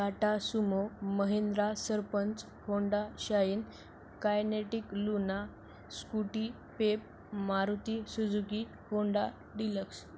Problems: constant background noise